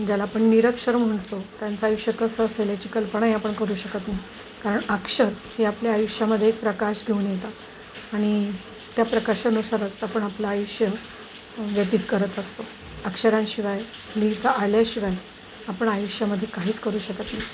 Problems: constant background noise